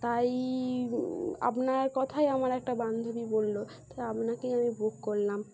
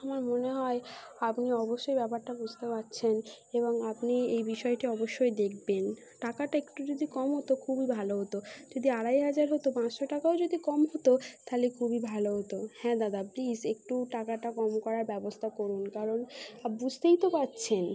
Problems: constant background noise